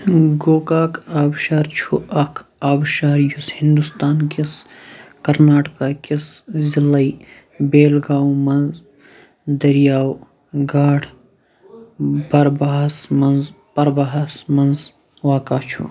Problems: background sounds at intervals, background conversations at intervals